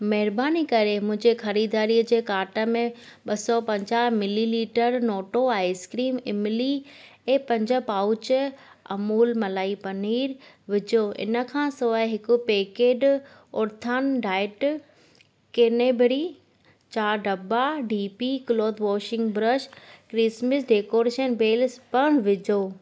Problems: constant background noise